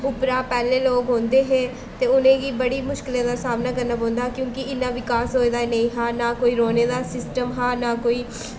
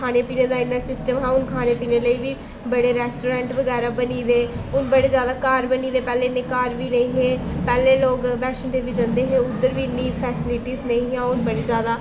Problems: constant background noise